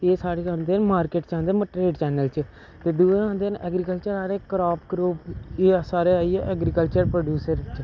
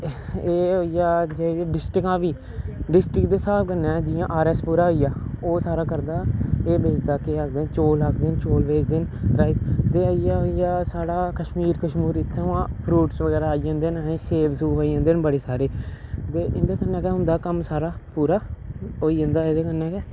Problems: none marked